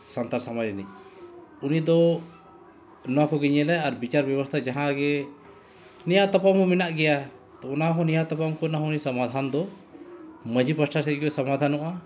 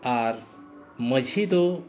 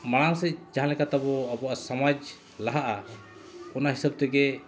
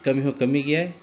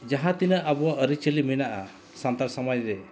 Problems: none marked